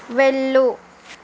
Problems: constant background noise